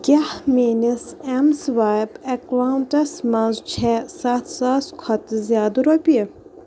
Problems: constant background noise